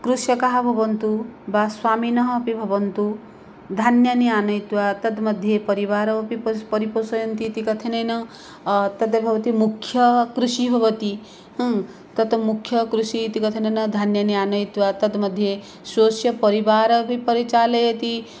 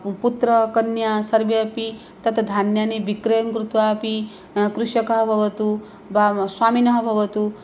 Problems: none marked